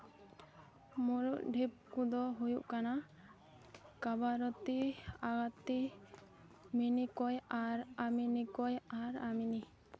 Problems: none marked